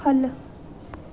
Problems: none marked